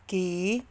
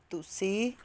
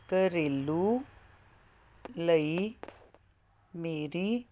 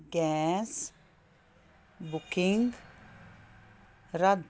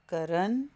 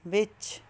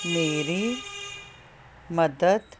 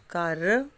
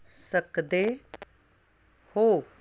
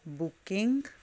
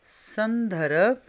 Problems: constant background noise